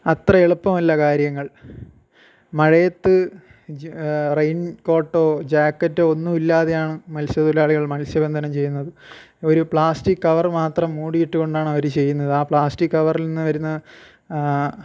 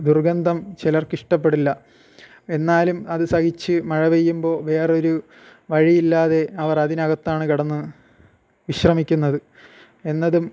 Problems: none marked